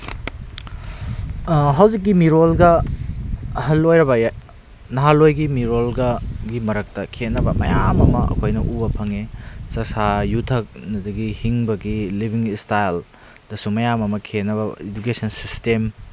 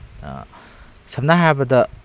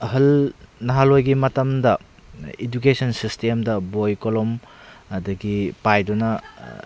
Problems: constant background noise